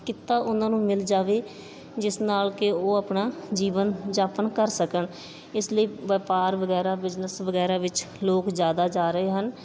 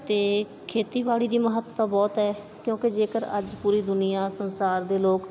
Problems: background sounds at intervals, background conversations at intervals